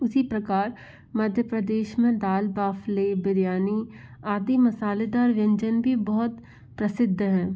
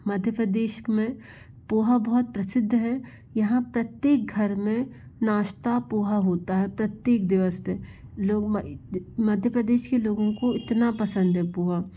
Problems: none marked